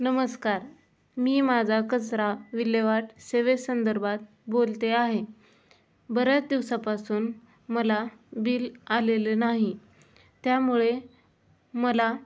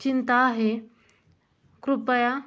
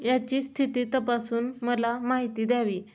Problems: background sounds at intervals